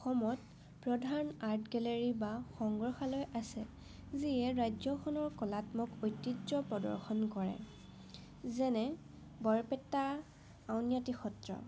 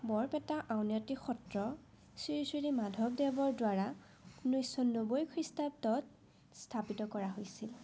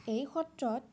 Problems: none marked